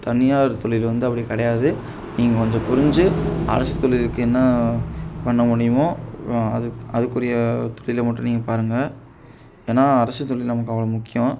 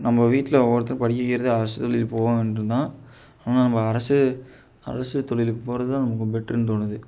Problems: background sounds at intervals